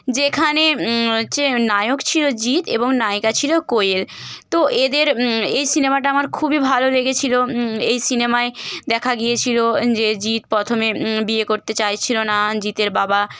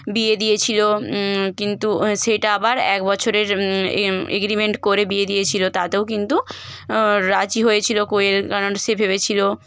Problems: constant background noise